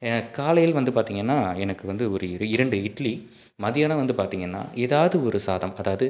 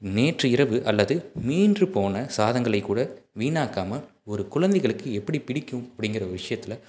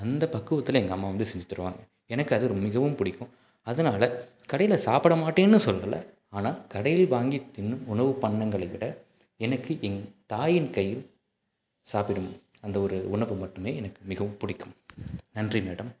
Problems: none marked